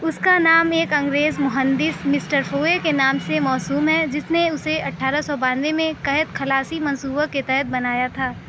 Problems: constant background noise, background conversations at intervals